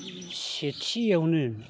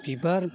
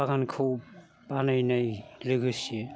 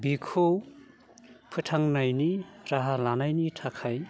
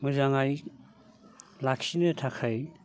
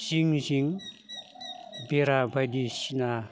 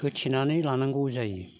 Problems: none marked